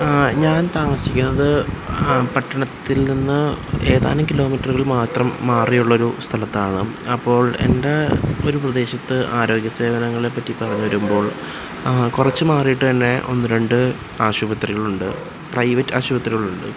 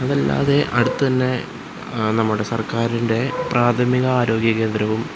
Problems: constant background noise